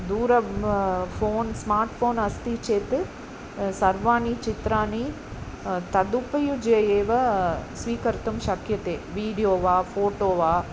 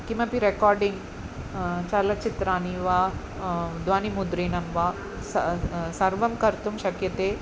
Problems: none marked